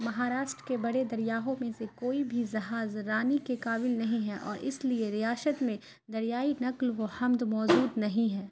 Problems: constant background noise